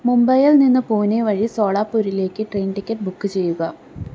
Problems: low volume